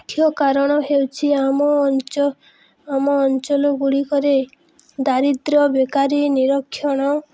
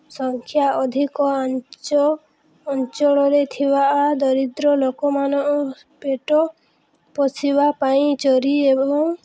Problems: none marked